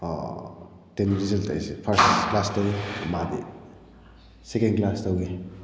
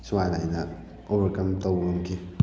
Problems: none marked